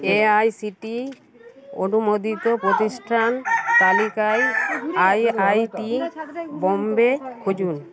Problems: background sounds at intervals, continuous background conversations